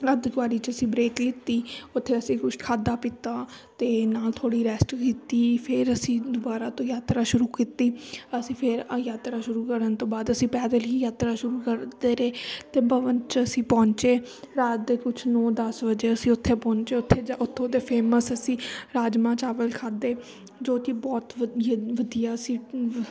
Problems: none marked